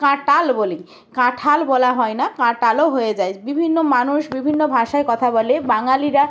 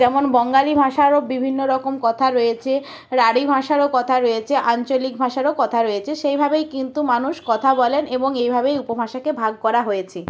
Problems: constant background noise